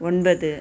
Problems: background sounds at intervals